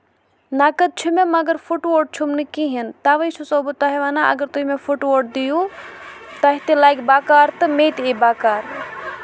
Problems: none marked